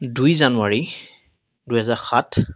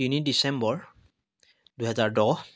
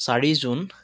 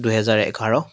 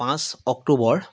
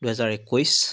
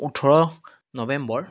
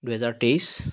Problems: none marked